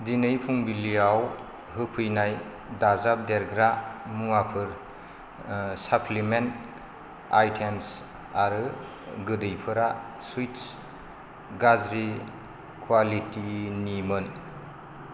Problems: none marked